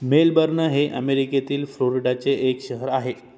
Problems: none marked